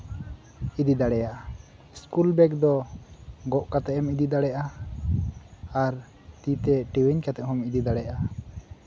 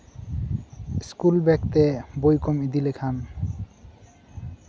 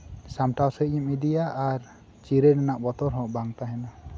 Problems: none marked